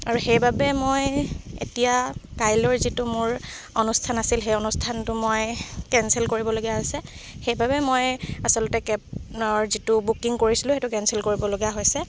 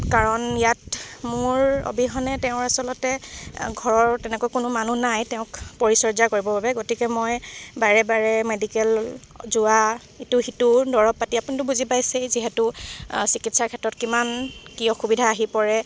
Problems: constant background noise